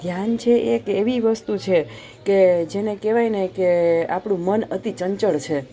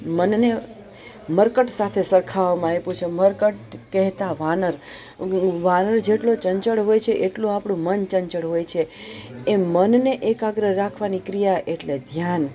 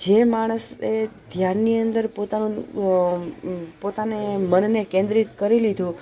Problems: none marked